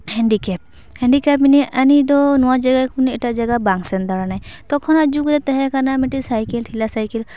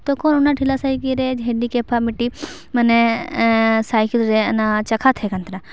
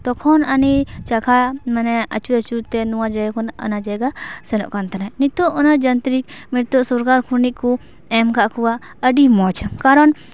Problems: constant background noise